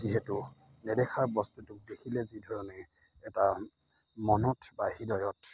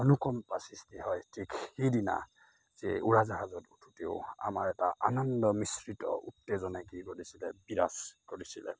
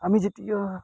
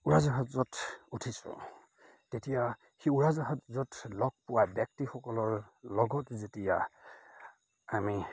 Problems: constant background noise, background conversations at intervals